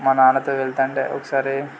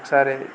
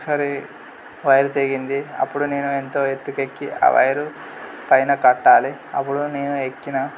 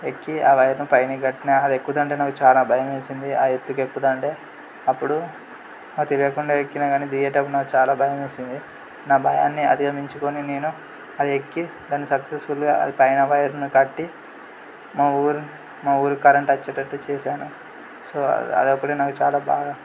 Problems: constant background noise